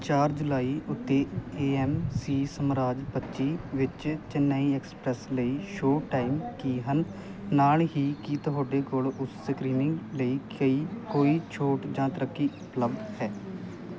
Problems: constant background noise